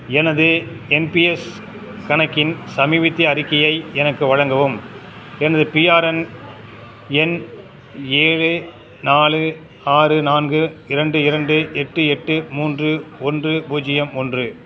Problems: constant background noise